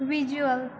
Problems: constant background noise